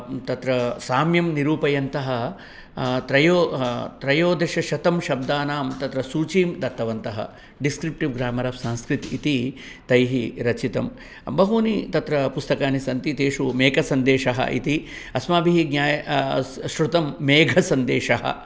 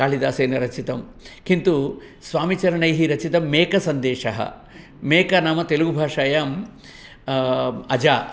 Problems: background sounds at intervals